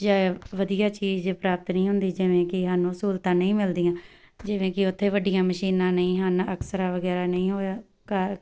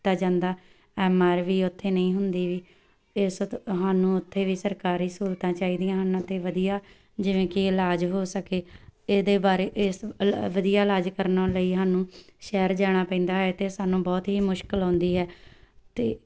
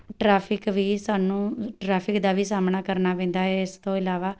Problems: background sounds at intervals